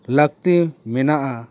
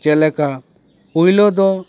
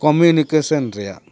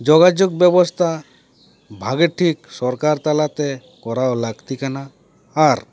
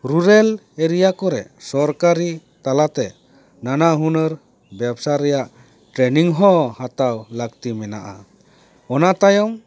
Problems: background sounds at intervals